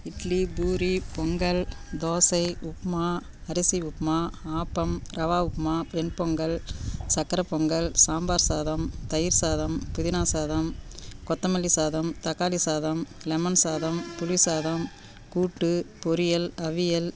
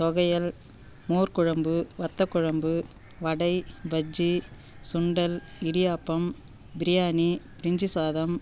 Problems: background sounds at intervals